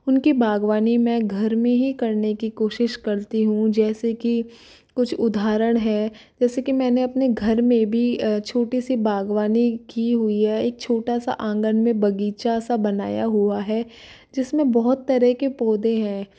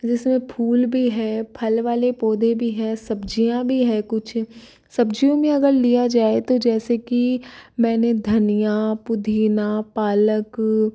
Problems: none marked